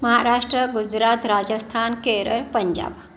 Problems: background sounds at intervals